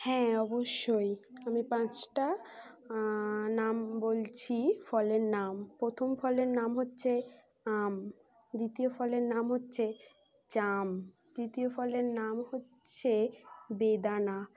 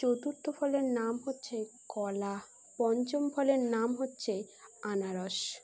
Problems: none marked